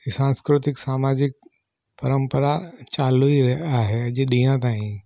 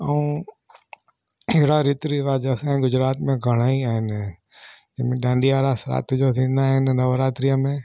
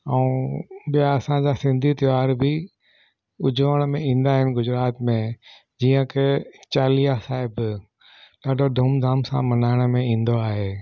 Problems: none marked